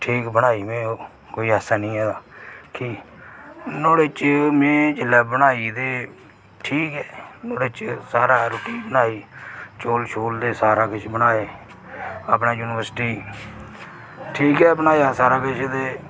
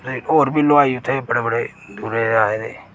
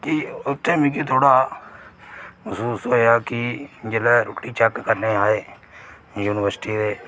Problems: none marked